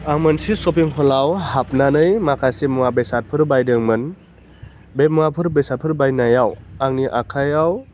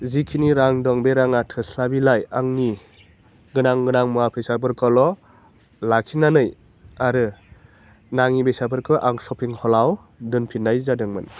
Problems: constant background noise